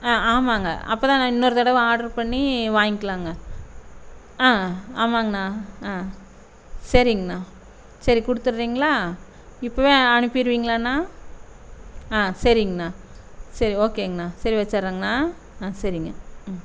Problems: constant background noise